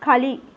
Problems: none marked